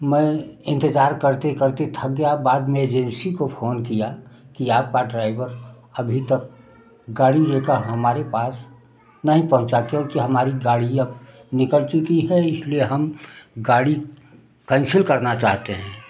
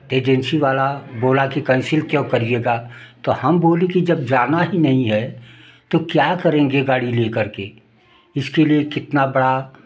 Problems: background sounds at intervals